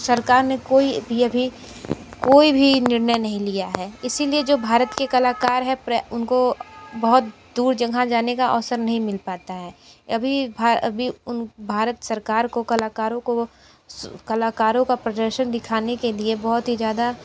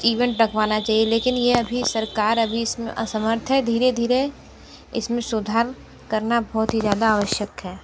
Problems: none marked